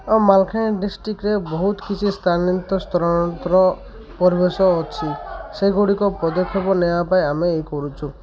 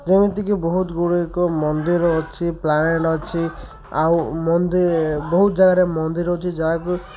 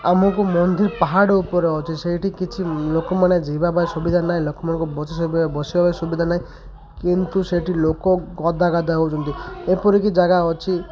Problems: constant background noise, continuous background conversations